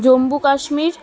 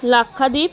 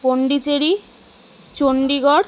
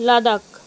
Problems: constant background noise, continuous background conversations